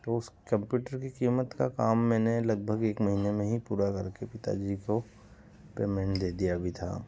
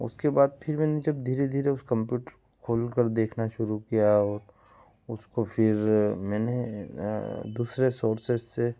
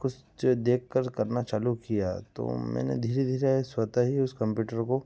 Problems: background sounds at intervals